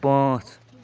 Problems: none marked